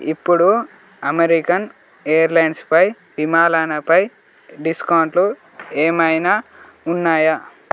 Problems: constant background noise